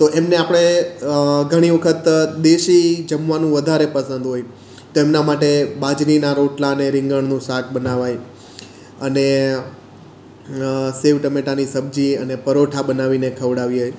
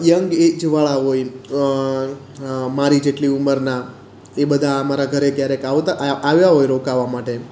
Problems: none marked